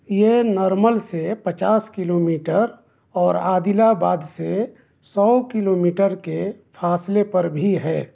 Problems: constant background noise